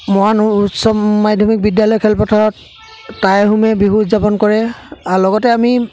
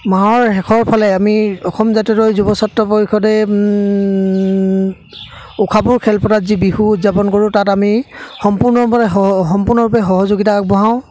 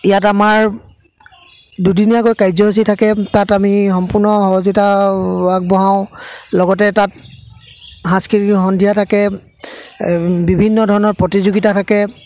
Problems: constant background noise, background conversations at intervals